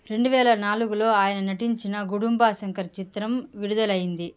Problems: none marked